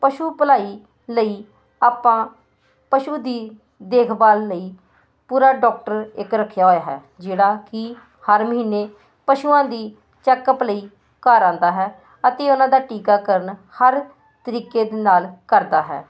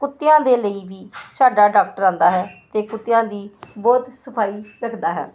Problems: constant background noise